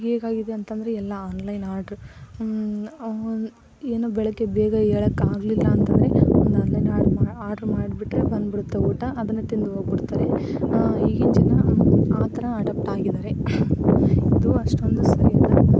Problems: none marked